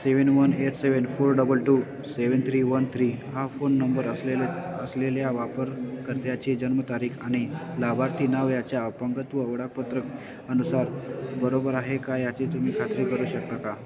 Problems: continuous background conversations